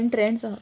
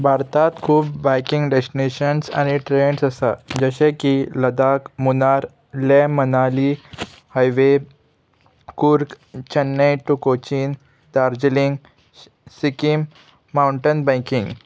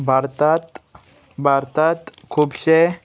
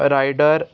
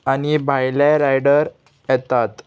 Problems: constant background noise, background conversations at intervals